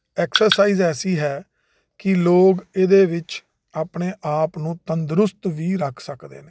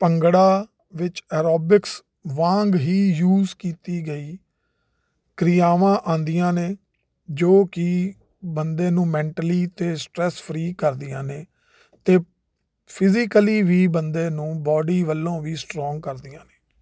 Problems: none marked